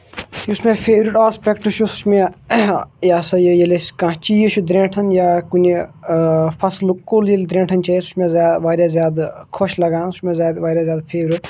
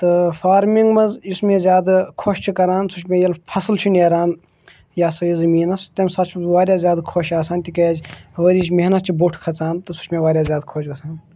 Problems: none marked